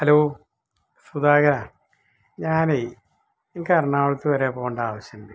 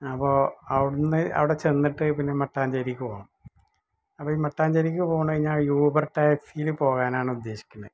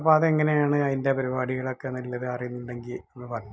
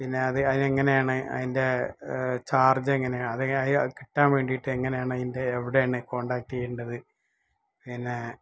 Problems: background sounds at intervals